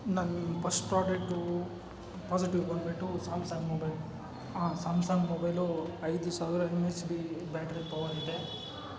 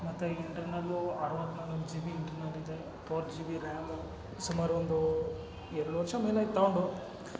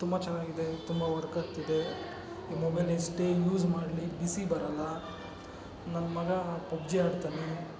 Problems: constant background noise